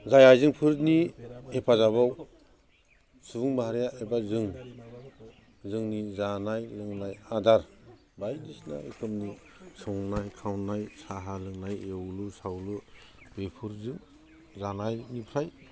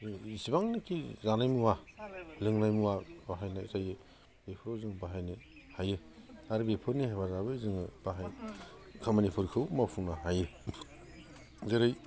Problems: constant background noise